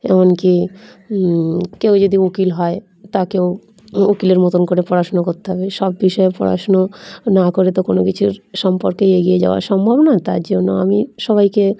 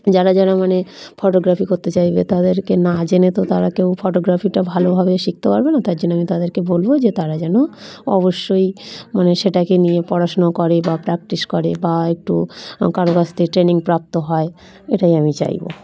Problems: background sounds at intervals, continuous background conversations